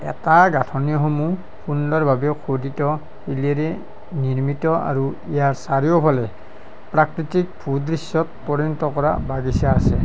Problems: none marked